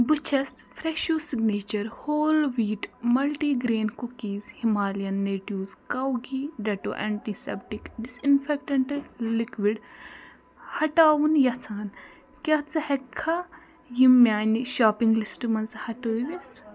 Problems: constant background noise, continuous background conversations